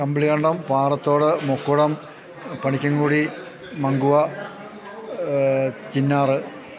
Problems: background sounds at intervals